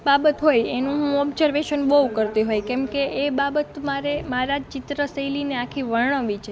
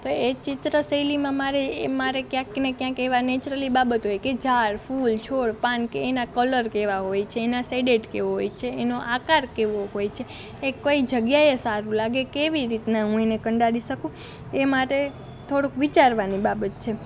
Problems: none marked